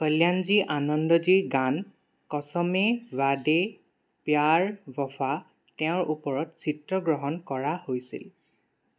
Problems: none marked